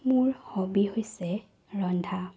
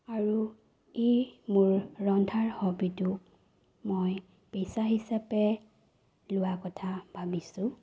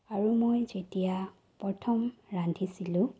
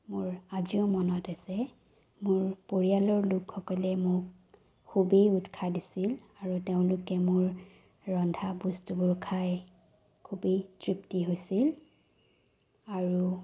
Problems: low volume